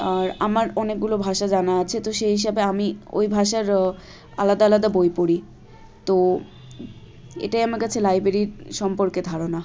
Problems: constant background noise, continuous background conversations